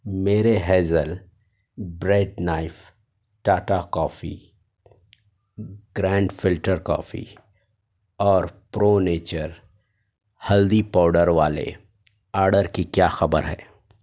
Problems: none marked